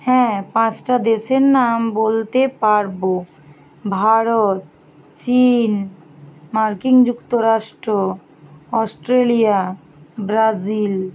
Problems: constant background noise